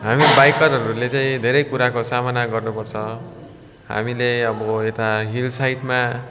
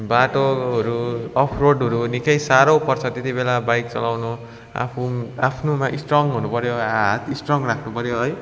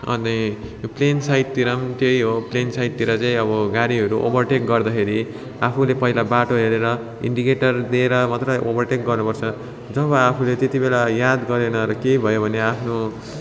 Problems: constant background noise, continuous background conversations